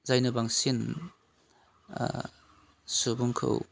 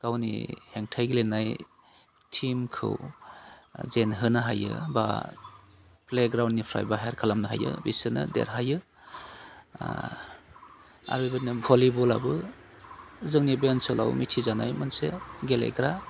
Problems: constant background noise